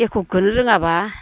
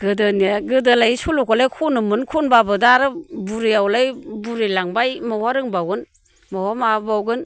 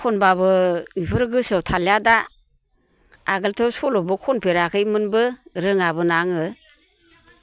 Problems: constant background noise